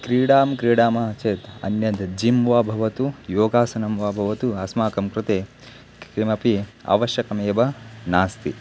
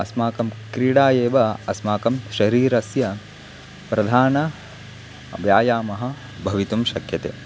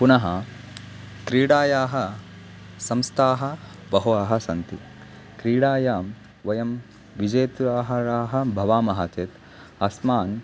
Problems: constant background noise